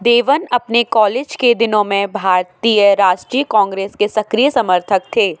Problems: constant background noise